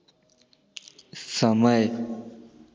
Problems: none marked